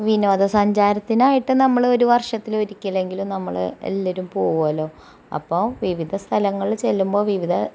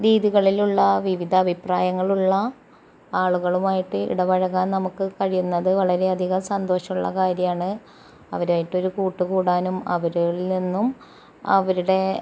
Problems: background sounds at intervals